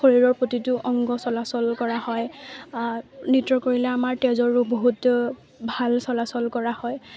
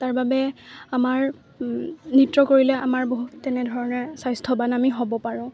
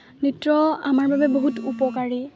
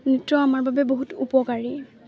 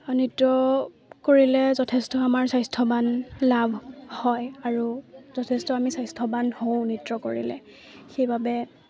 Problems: none marked